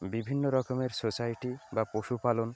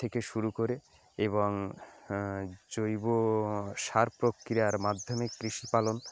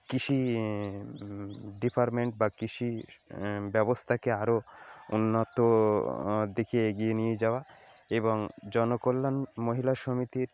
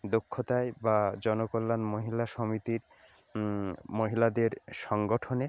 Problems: background sounds at intervals